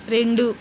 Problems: none marked